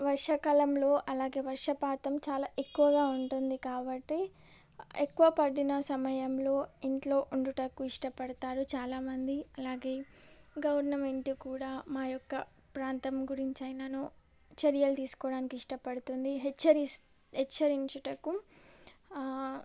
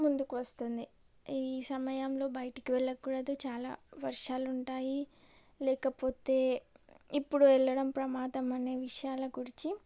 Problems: none marked